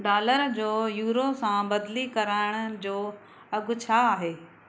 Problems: none marked